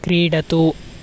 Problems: constant background noise